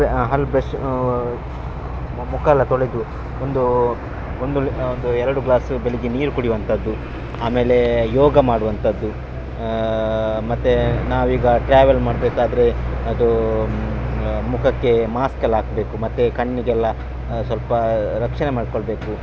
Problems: none marked